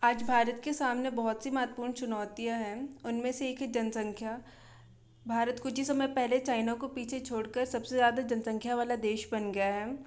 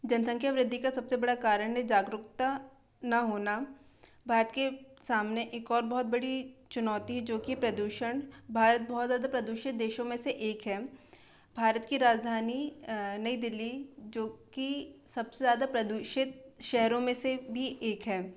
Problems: constant background noise